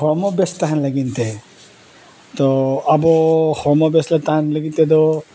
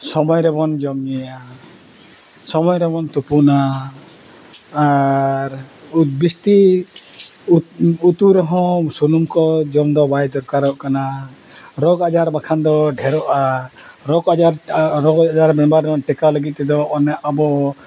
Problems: none marked